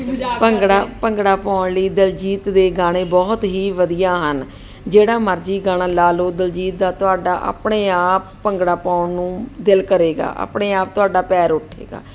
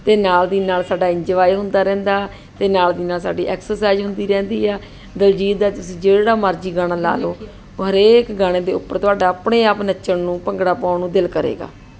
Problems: background conversations at intervals